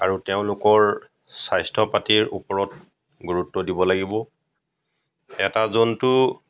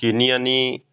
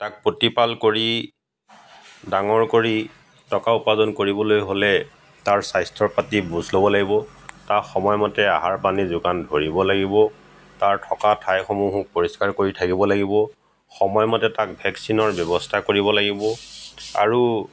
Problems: background sounds at intervals, background conversations at intervals